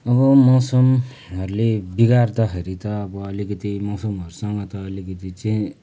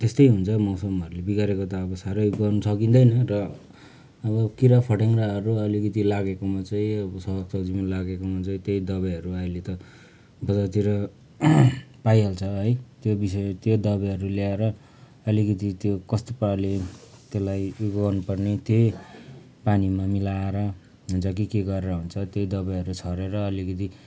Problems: background sounds at intervals